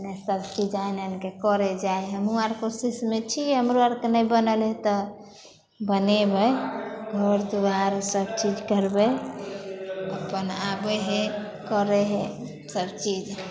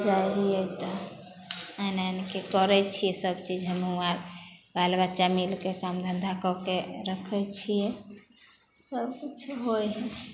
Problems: none marked